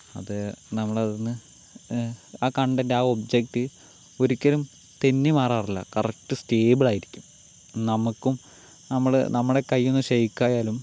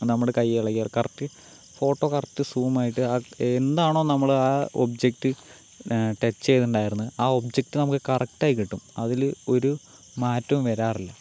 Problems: constant background noise